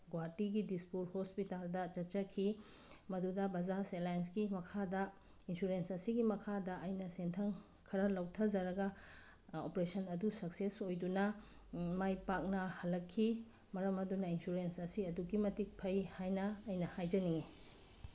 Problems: background sounds at intervals